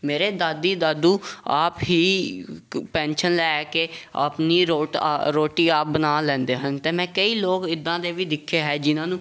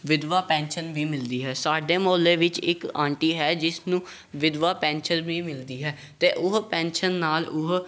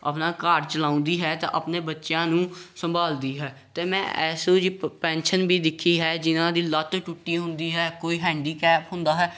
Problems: none marked